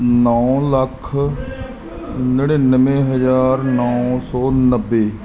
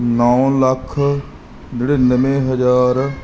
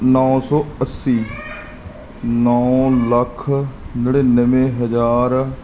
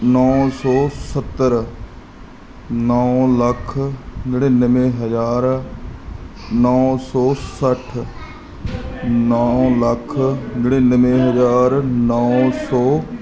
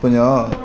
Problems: continuous background conversations